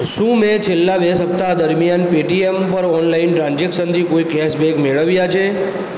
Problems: constant background noise